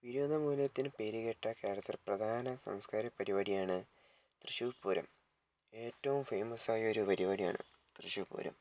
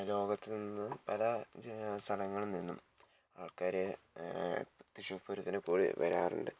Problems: low volume